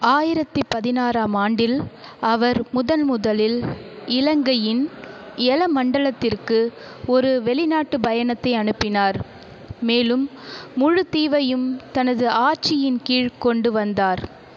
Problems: background conversations at intervals